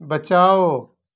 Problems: none marked